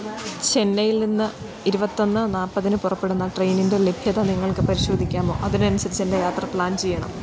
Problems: constant background noise